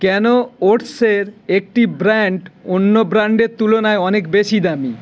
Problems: constant background noise